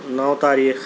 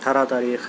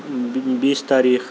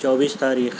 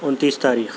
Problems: constant background noise